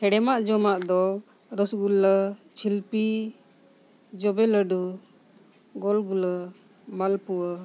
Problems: none marked